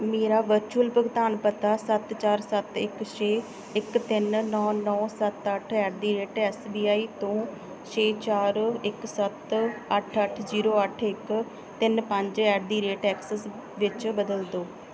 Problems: background sounds at intervals